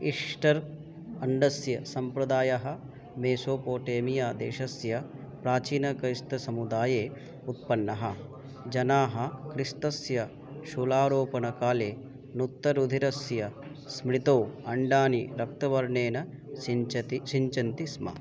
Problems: none marked